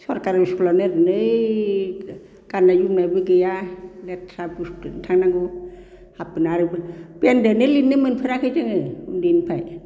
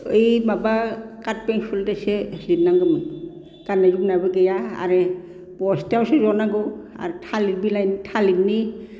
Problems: none marked